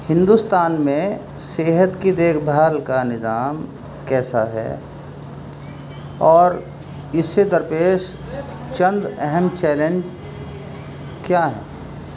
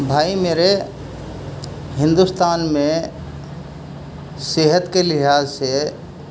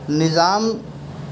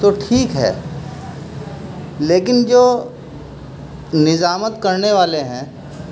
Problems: constant background noise, low volume